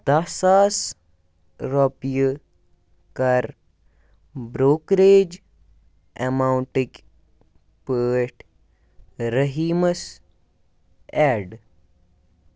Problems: none marked